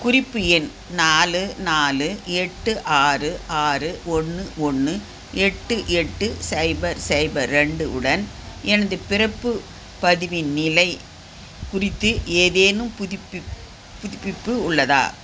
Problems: none marked